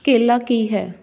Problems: none marked